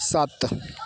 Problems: background sounds at intervals